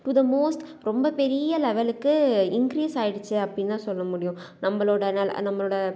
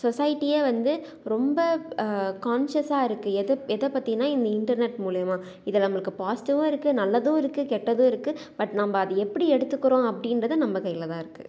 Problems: none marked